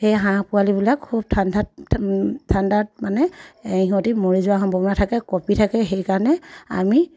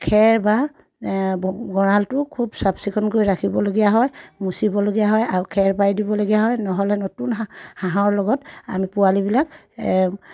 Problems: none marked